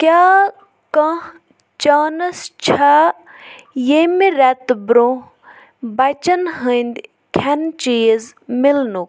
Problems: background sounds at intervals